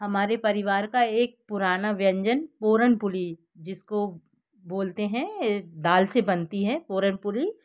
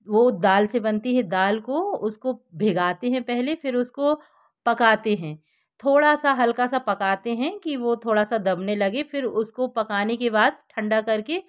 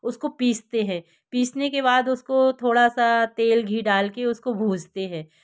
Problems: background sounds at intervals